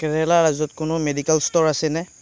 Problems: background conversations at intervals